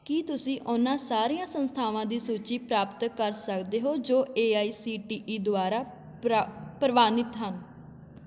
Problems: constant background noise